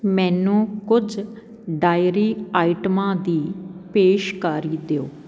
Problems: constant background noise